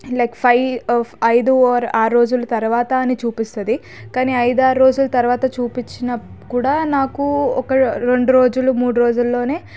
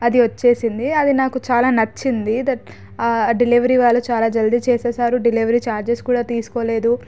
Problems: background sounds at intervals